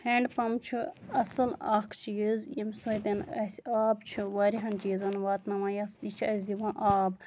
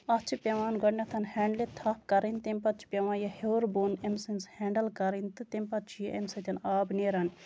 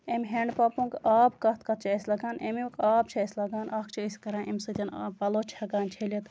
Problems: none marked